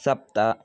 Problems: none marked